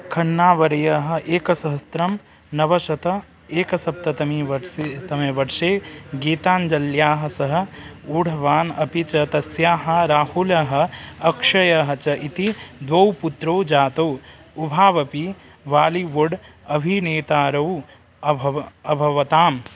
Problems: constant background noise